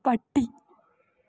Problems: none marked